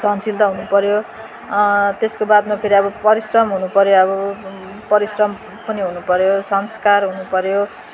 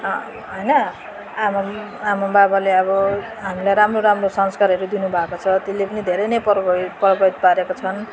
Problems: none marked